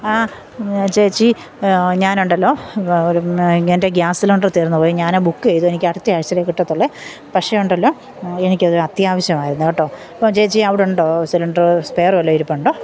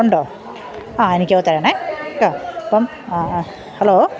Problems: constant background noise, background conversations at intervals